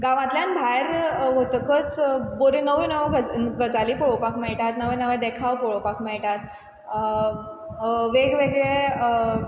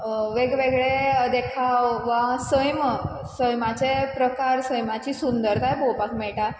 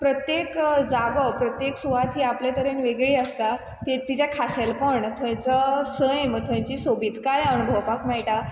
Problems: constant background noise